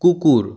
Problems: background sounds at intervals